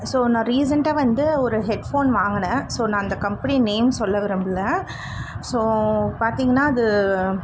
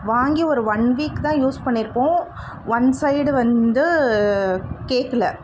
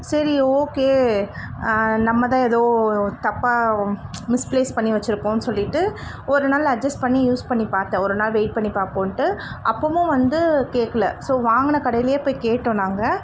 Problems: constant background noise